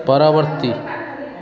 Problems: constant background noise